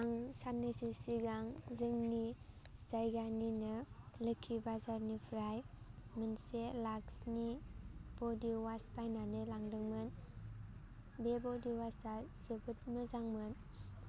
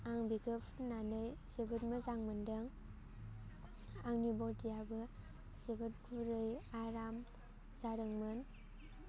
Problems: low volume